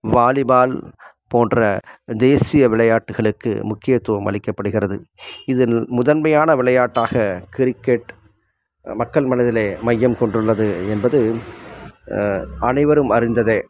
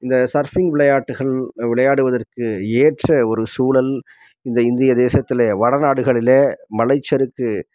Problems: background sounds at intervals